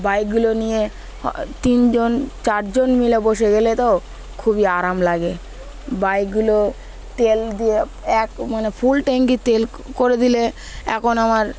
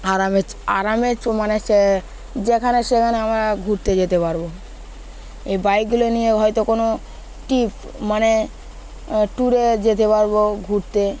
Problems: constant background noise